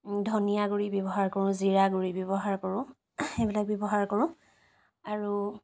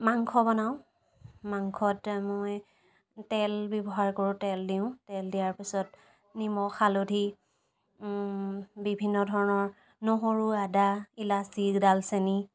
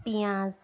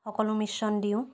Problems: none marked